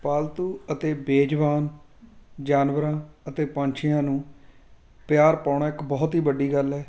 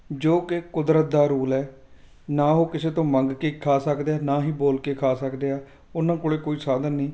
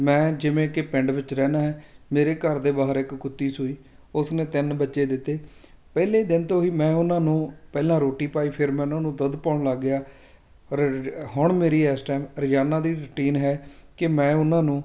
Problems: background sounds at intervals